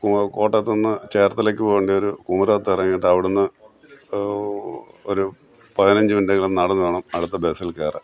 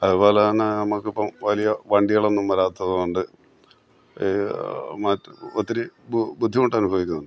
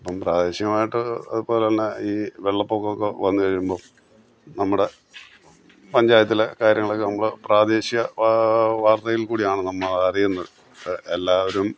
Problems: background sounds at intervals